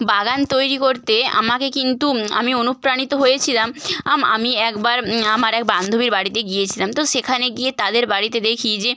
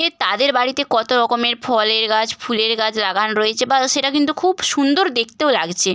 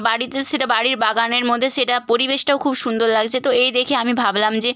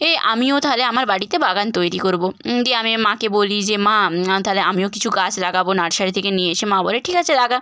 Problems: none marked